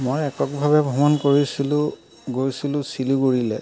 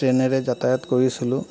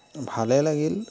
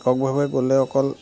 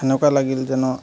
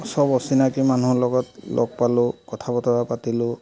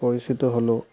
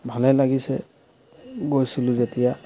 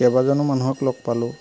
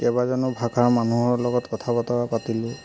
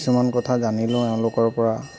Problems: constant background noise, background conversations at intervals